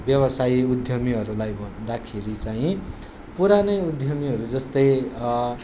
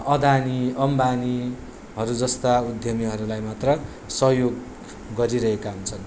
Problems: background sounds at intervals